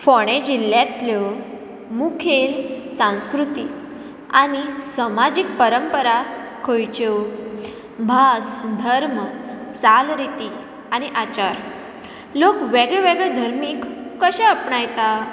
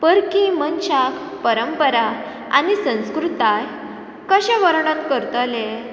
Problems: background sounds at intervals